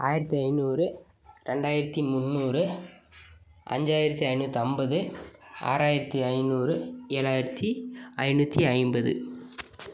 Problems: none marked